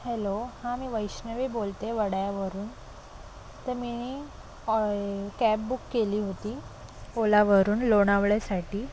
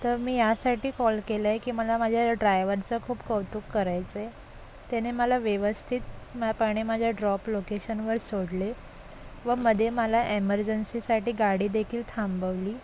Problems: constant background noise, continuous background conversations